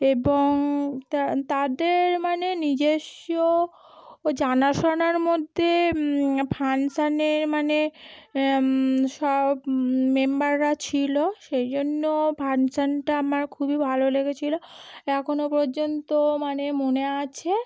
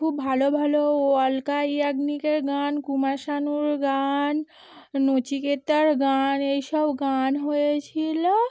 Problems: background conversations at intervals